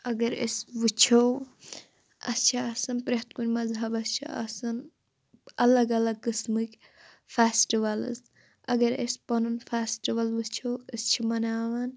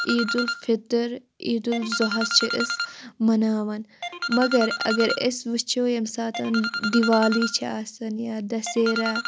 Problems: constant background noise